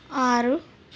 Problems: none marked